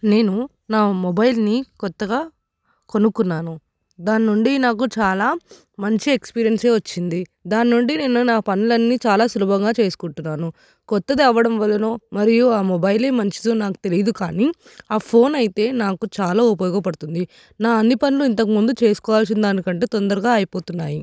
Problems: none marked